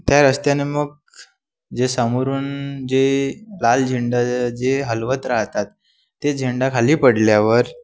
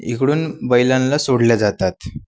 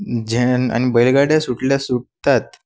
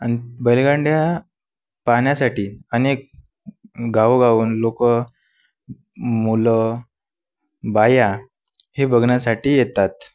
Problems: constant background noise